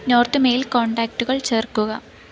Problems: background sounds at intervals